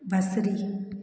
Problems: constant background noise, echo